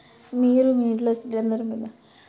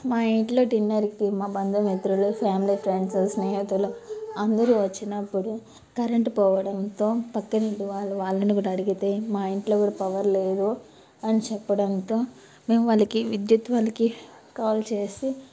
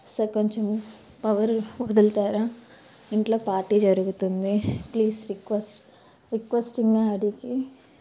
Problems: background sounds at intervals, background conversations at intervals